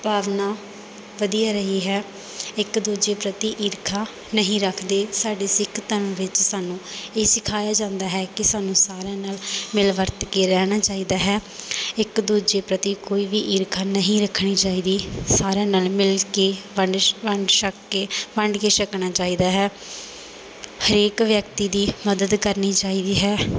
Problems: none marked